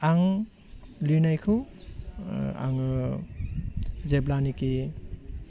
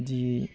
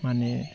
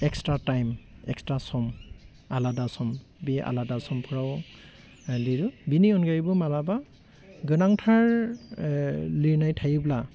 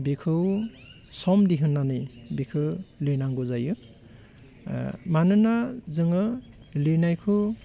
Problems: constant background noise